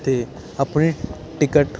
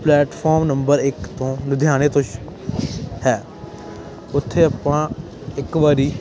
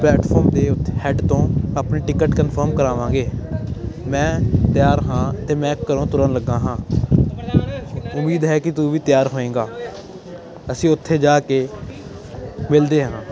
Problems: constant background noise